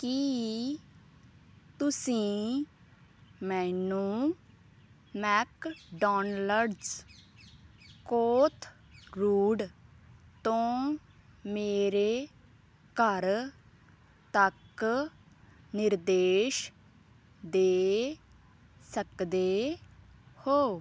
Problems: background sounds at intervals